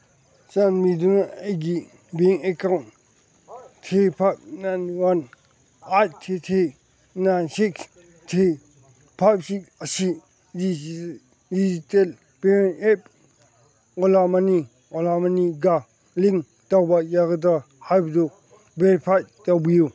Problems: background sounds at intervals, background conversations at intervals